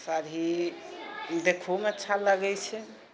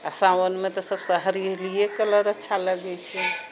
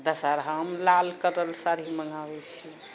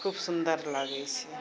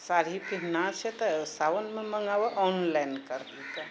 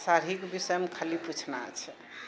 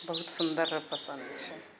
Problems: none marked